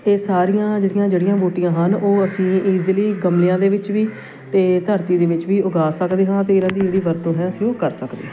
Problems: constant background noise, continuous background conversations